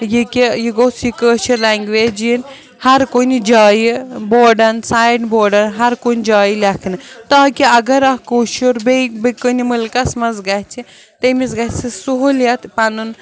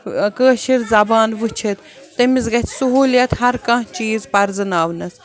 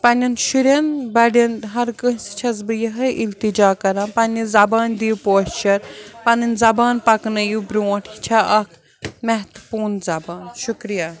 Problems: none marked